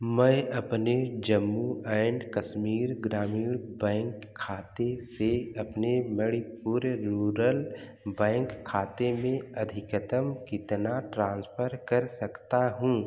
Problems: background sounds at intervals